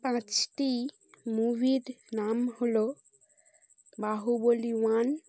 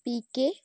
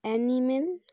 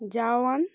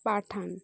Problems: constant background noise